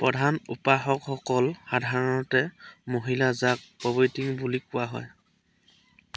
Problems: constant background noise